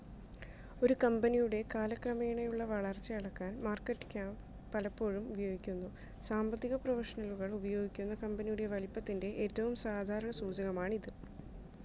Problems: low volume